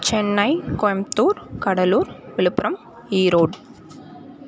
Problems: constant background noise